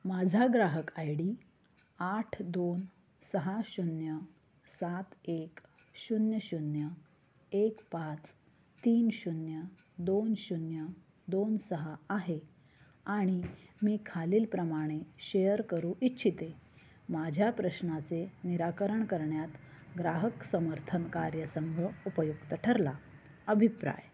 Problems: low volume